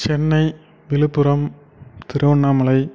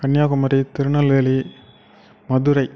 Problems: background sounds at intervals